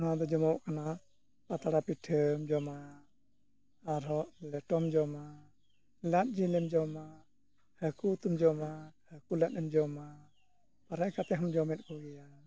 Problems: background sounds at intervals